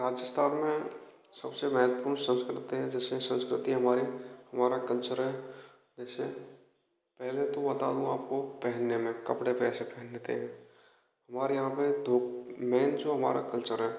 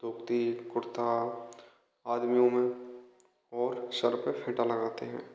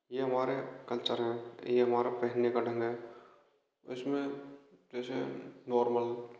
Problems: constant background noise, echo